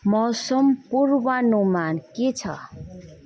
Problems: none marked